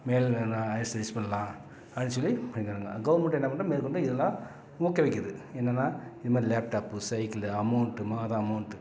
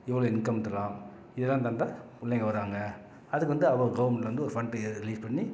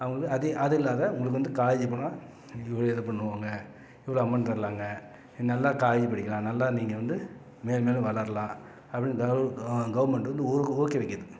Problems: none marked